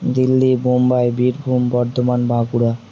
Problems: none marked